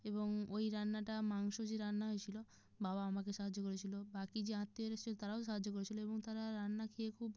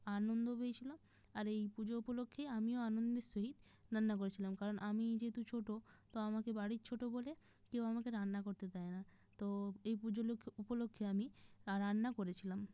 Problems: background sounds at intervals